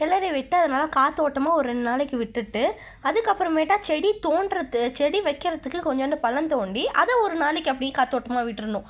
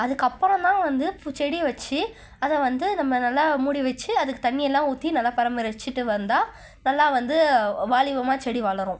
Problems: none marked